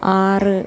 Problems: constant background noise, low volume